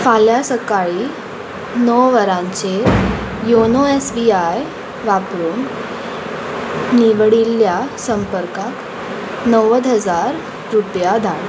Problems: constant background noise